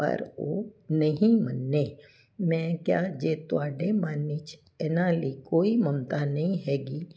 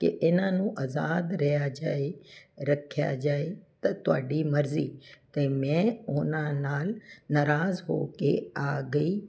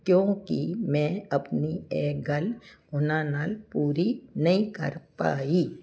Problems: constant background noise